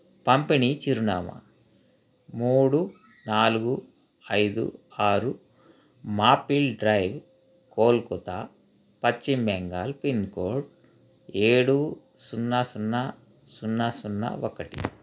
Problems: constant background noise